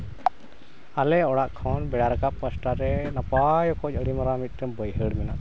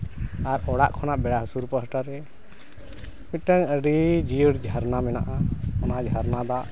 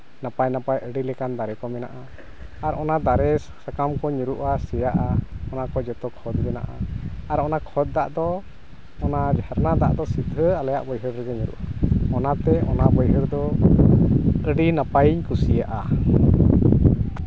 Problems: constant background noise